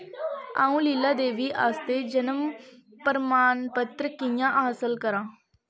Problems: none marked